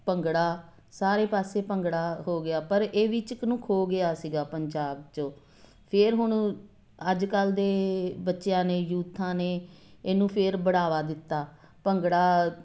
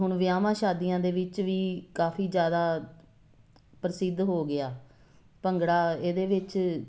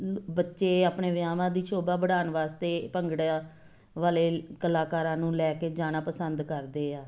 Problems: constant background noise